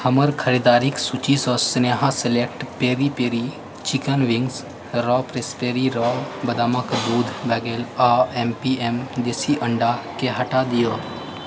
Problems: constant background noise, low volume